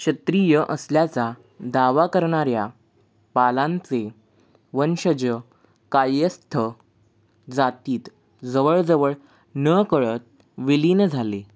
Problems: none marked